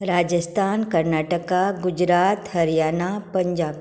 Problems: background sounds at intervals